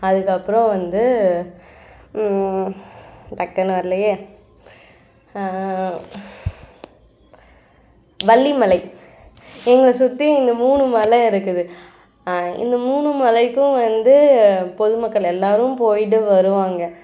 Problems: none marked